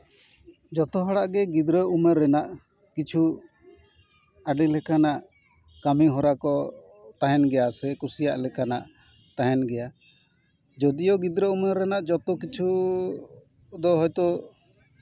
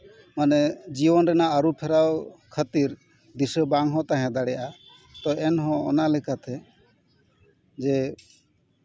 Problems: background sounds at intervals, background conversations at intervals